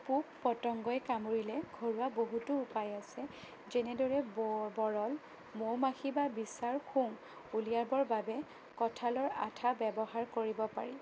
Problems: constant background noise, low volume